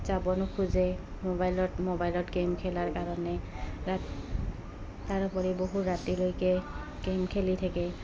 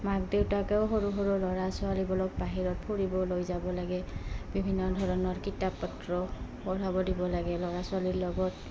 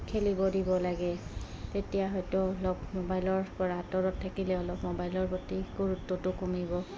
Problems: background sounds at intervals, background conversations at intervals